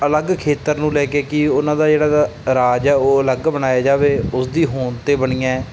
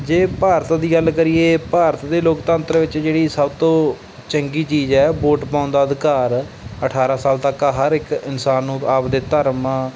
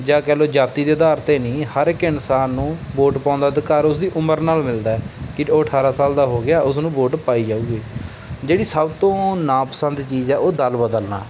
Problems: background sounds at intervals